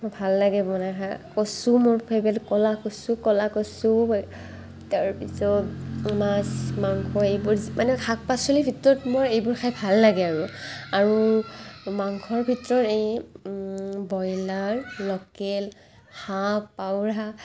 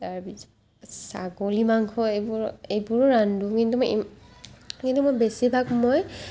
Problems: background sounds at intervals, background conversations at intervals